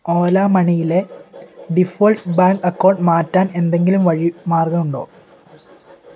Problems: none marked